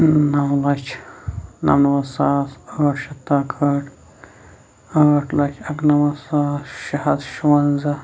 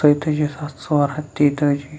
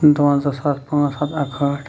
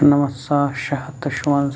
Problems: constant background noise